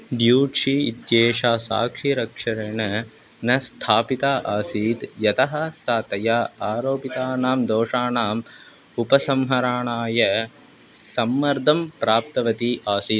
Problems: constant background noise